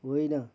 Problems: none marked